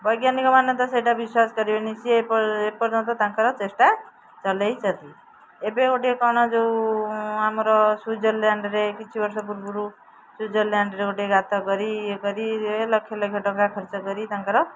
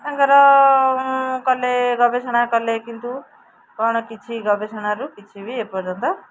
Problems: background sounds at intervals, background conversations at intervals